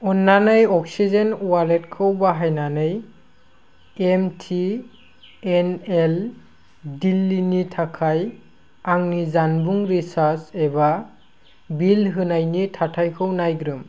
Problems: none marked